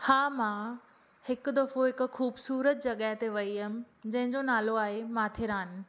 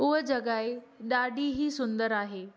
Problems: none marked